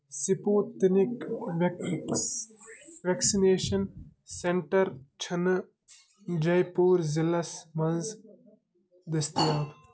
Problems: background sounds at intervals